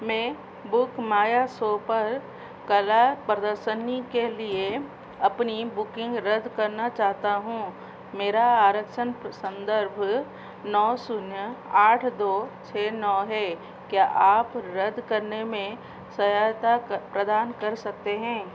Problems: constant background noise